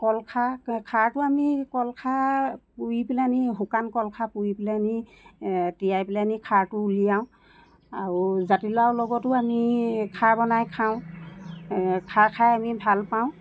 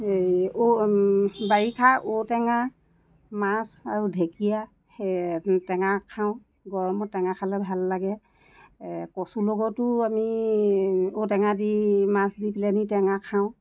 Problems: constant background noise